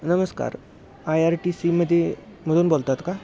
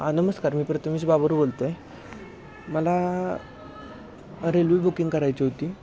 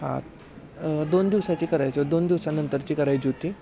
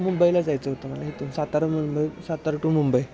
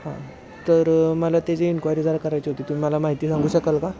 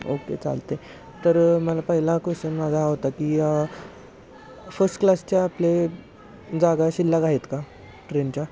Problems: constant background noise, continuous background conversations